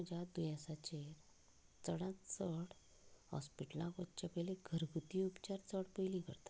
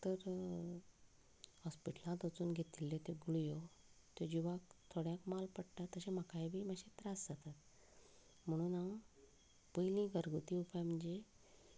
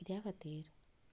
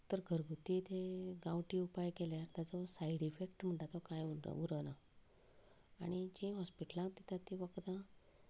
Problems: background conversations at intervals, low volume